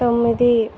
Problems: none marked